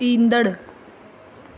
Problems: constant background noise, echo